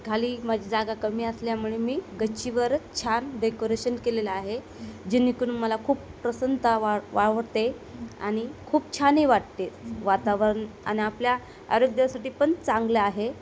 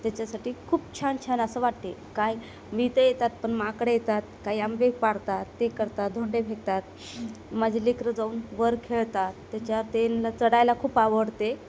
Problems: constant background noise